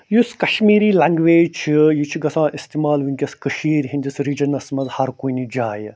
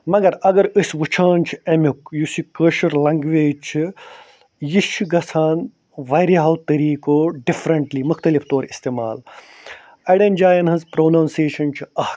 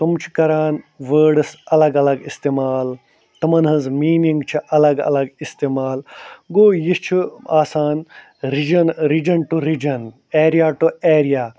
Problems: none marked